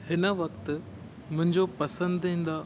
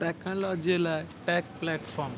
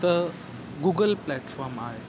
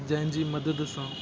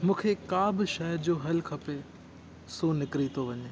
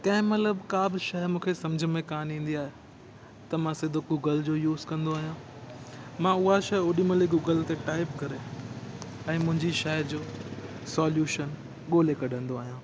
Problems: constant background noise